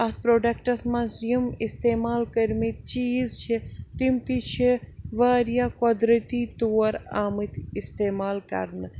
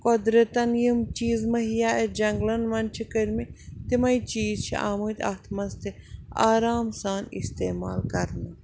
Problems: none marked